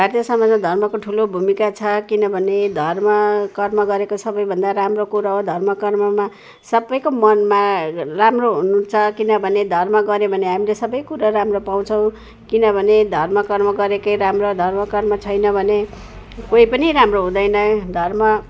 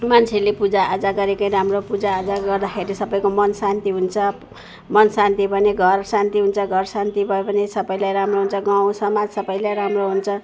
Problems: none marked